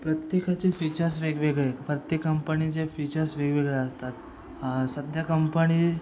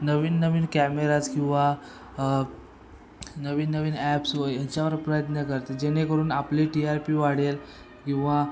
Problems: constant background noise